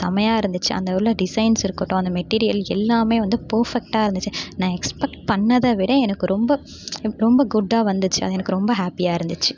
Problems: background sounds at intervals